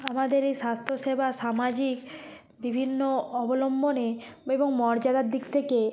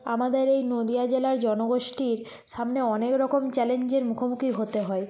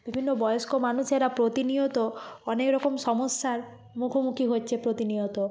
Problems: constant background noise, background conversations at intervals